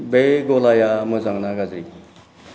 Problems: low volume